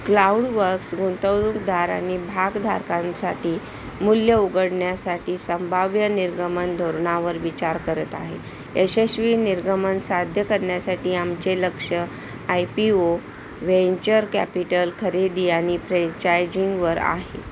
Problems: constant background noise